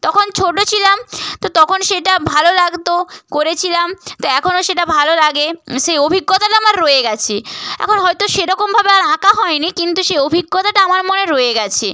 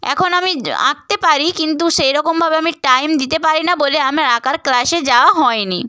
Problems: none marked